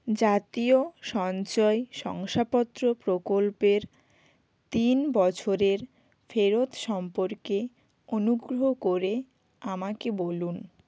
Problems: none marked